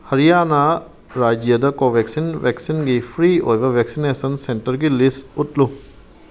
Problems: background sounds at intervals